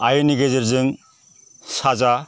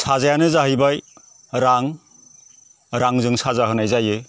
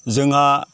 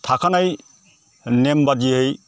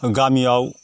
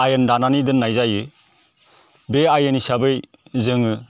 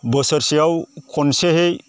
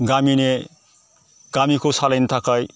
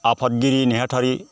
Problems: constant background noise